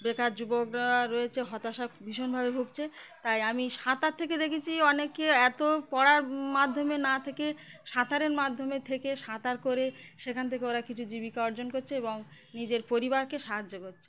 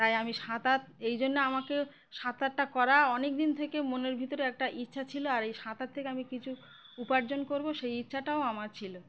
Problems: constant background noise, background conversations at intervals